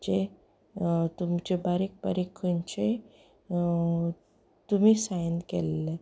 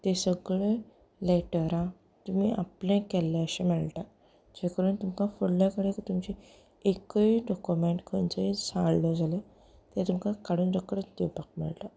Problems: background conversations at intervals